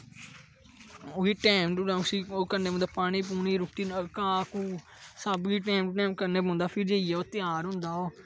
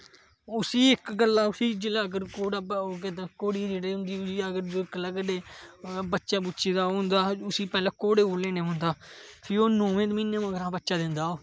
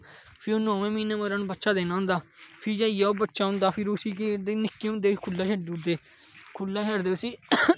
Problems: none marked